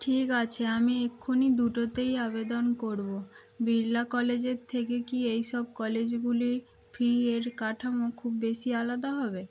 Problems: constant background noise